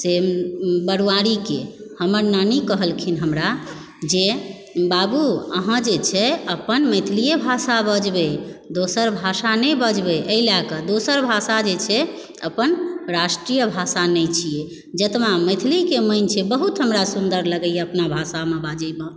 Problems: background sounds at intervals